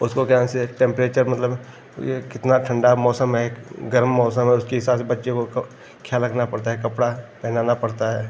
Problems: none marked